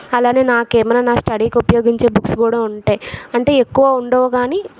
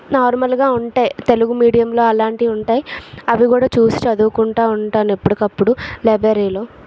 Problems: background sounds at intervals, background conversations at intervals